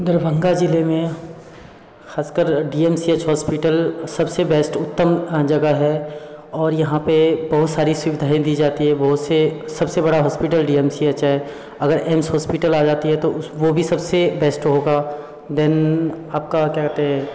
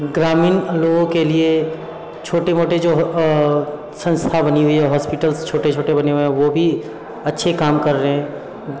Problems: constant background noise